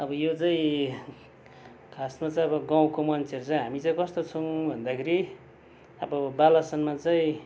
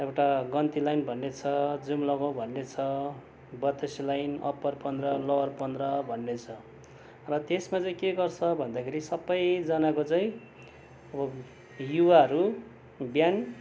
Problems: background sounds at intervals